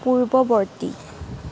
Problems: constant background noise